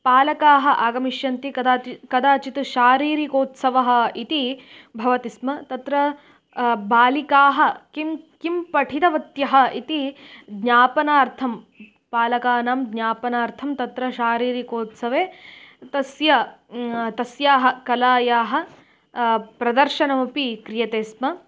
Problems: none marked